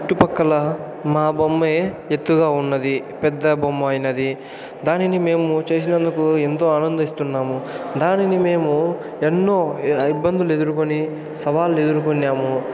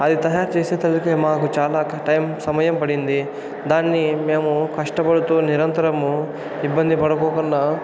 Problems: none marked